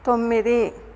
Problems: none marked